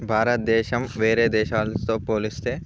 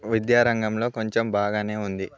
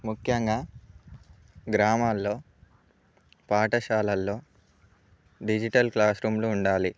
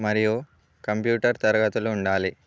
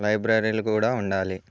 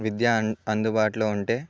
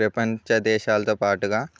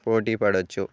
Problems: none marked